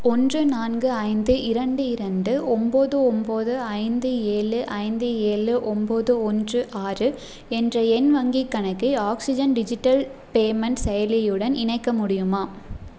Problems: none marked